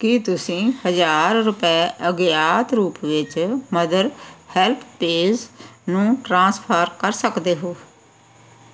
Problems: background sounds at intervals